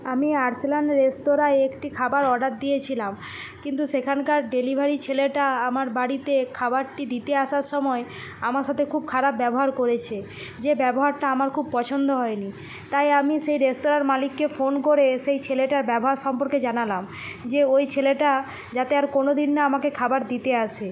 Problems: none marked